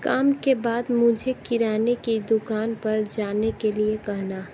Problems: none marked